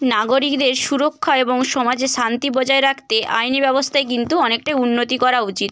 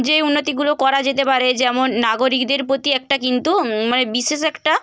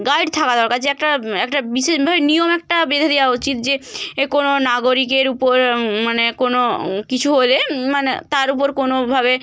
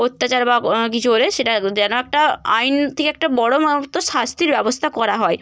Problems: none marked